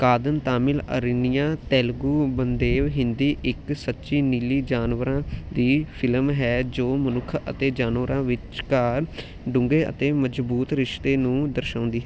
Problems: none marked